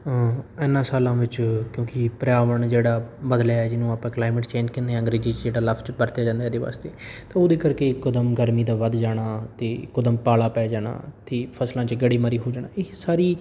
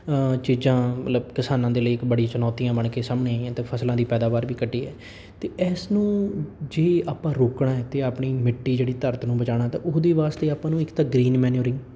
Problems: none marked